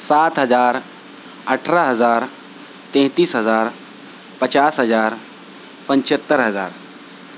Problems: constant background noise